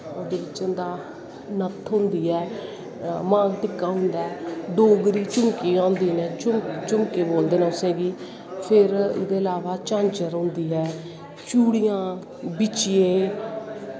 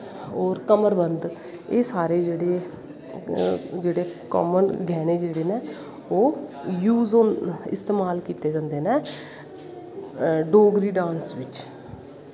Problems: constant background noise